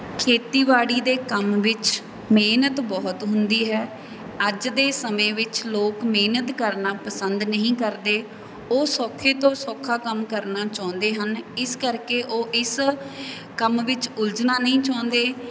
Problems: background sounds at intervals